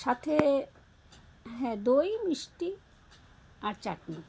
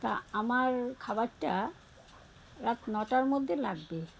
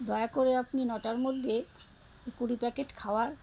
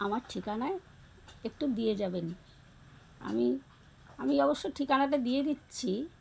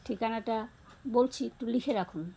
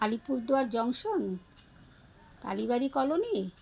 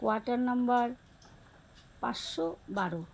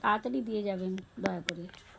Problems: background sounds at intervals, background conversations at intervals